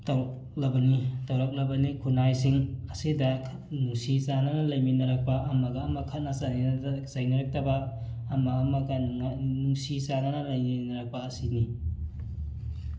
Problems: constant background noise